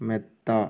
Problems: none marked